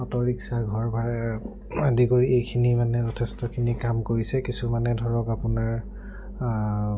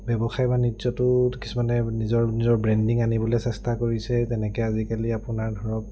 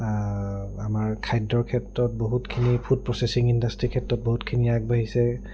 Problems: low volume